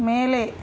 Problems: constant background noise